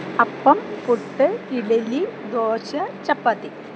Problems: constant background noise